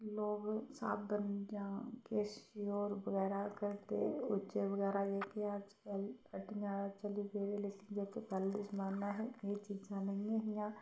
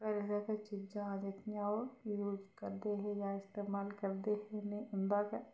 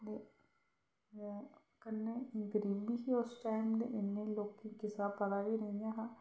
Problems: background sounds at intervals, low volume